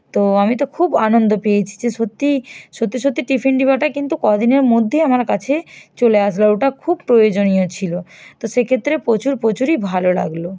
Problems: none marked